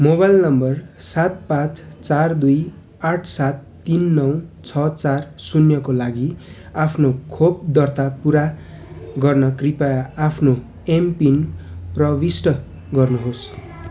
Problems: constant background noise